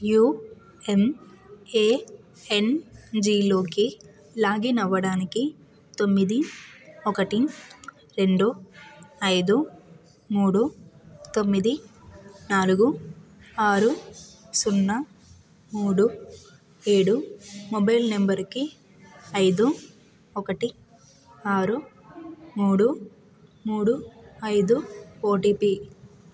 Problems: background sounds at intervals